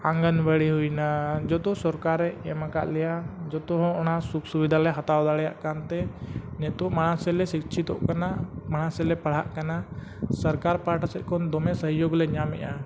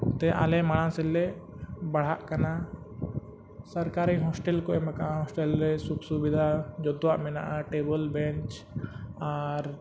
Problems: constant background noise